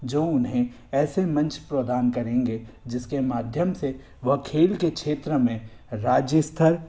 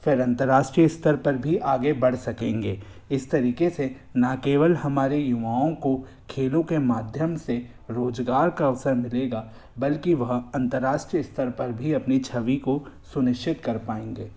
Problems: constant background noise